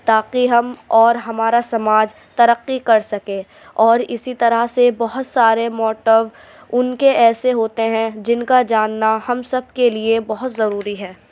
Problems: none marked